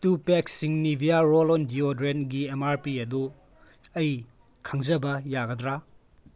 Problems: background sounds at intervals